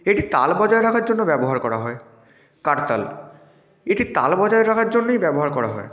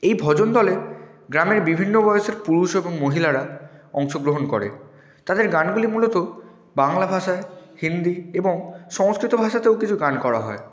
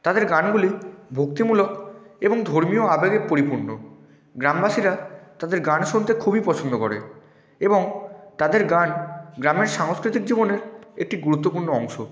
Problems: background sounds at intervals